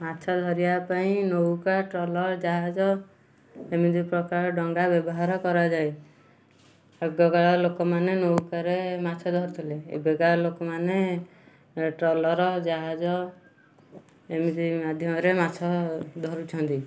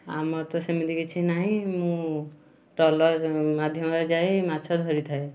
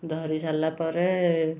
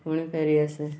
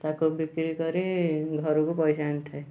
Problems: constant background noise, continuous background conversations